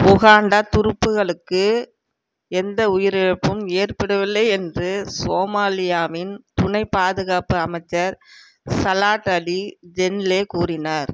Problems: background sounds at intervals